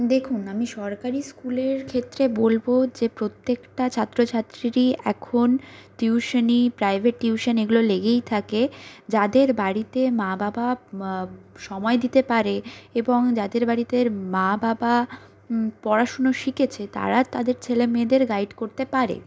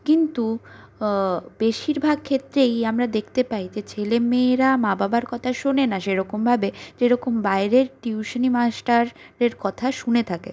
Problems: none marked